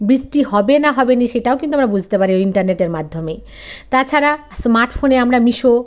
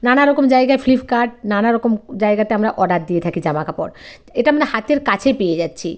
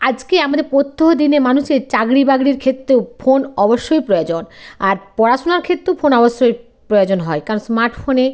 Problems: constant background noise